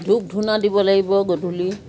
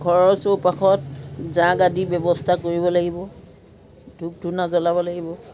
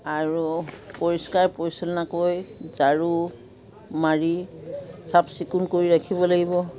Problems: continuous background conversations